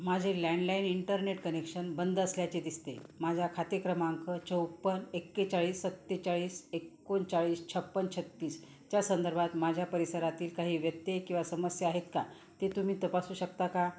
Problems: background sounds at intervals